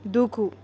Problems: none marked